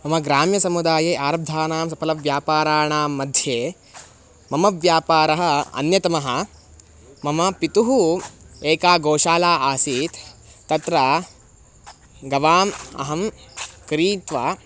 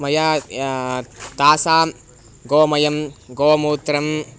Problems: constant background noise